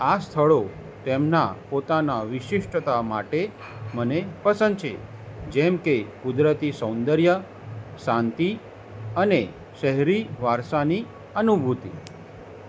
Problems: none marked